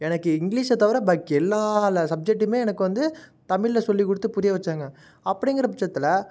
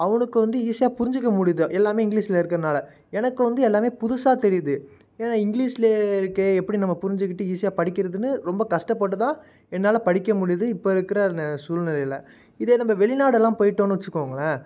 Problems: none marked